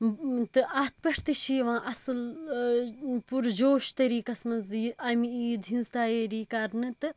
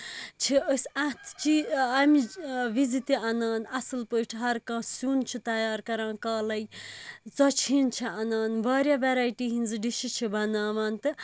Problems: constant background noise